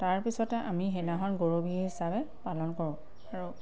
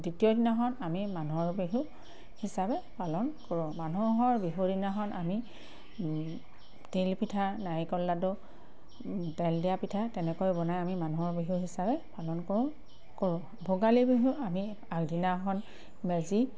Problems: constant background noise, background conversations at intervals